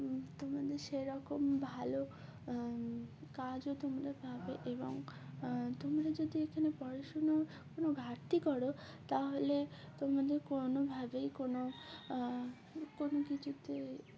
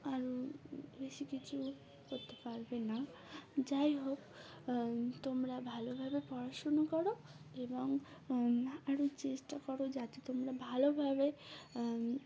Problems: constant background noise, continuous background conversations